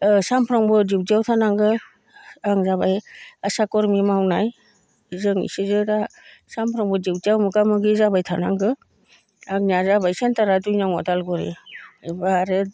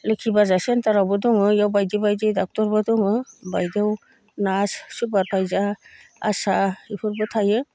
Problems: none marked